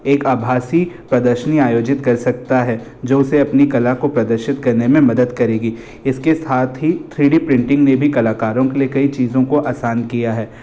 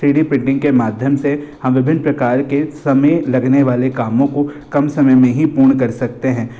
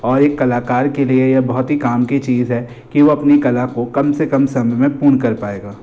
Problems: constant background noise, echo